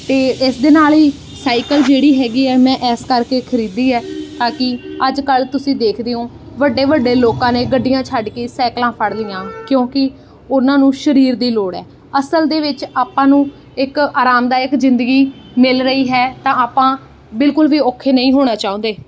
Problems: background sounds at intervals